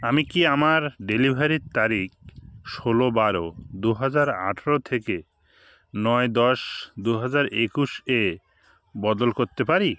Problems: background sounds at intervals